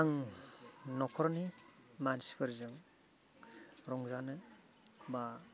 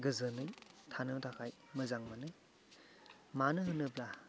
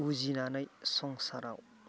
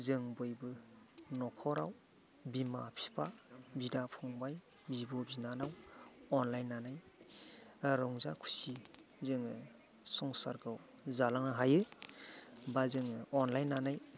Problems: background sounds at intervals, background conversations at intervals